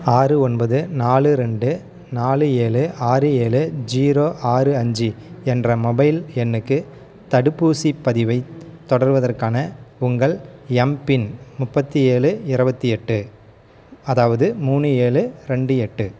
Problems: background sounds at intervals